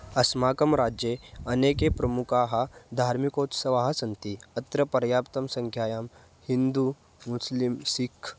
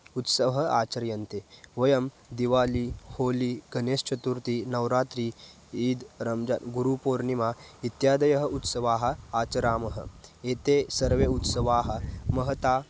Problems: none marked